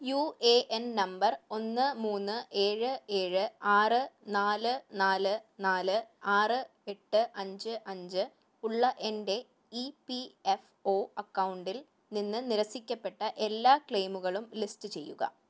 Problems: none marked